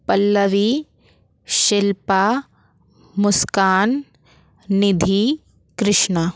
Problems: none marked